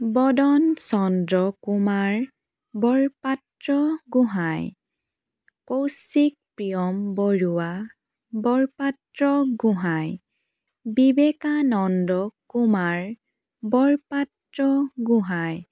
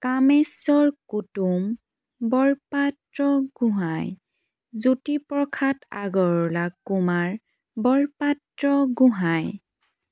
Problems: none marked